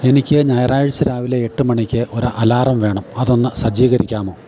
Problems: none marked